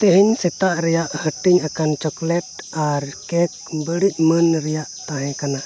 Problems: background sounds at intervals